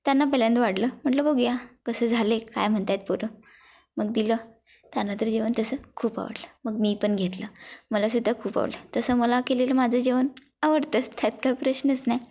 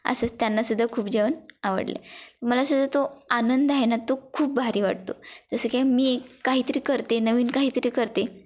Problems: constant background noise, background conversations at intervals